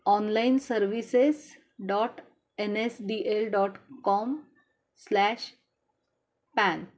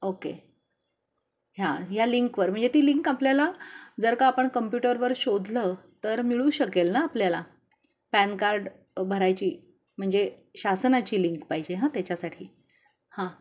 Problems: constant background noise, continuous background conversations